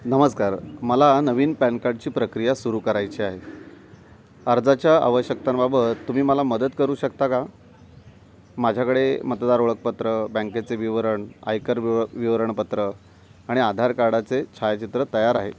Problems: constant background noise